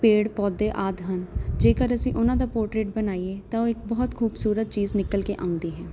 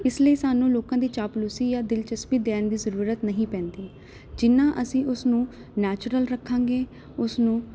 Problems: none marked